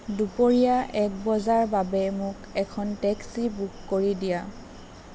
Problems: none marked